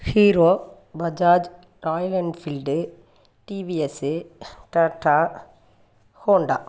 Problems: none marked